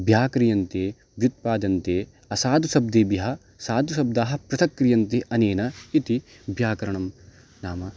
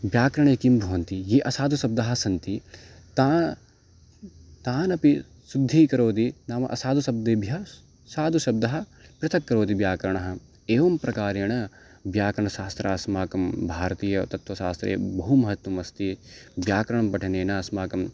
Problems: background sounds at intervals